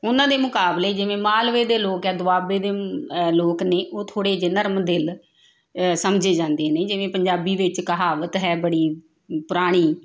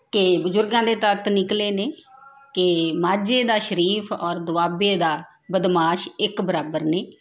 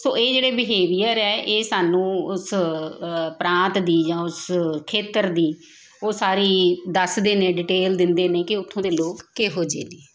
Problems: continuous background conversations